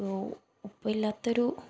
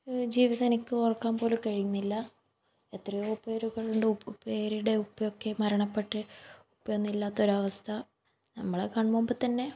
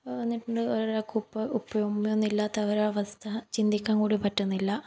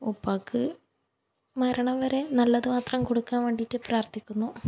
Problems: background sounds at intervals